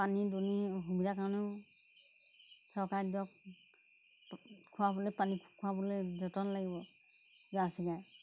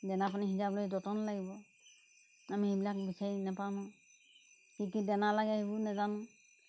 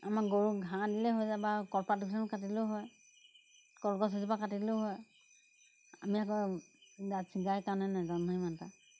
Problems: background sounds at intervals